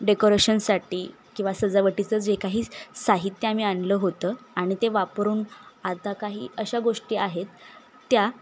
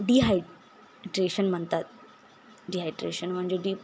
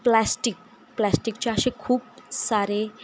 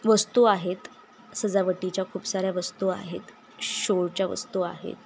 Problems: constant background noise, background conversations at intervals, echo